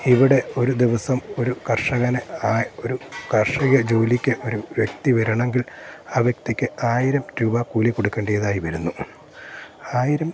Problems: constant background noise